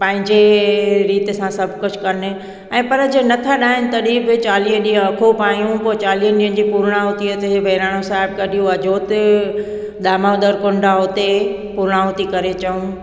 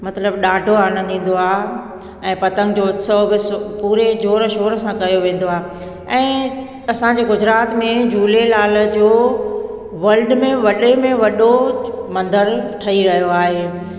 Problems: background sounds at intervals, echo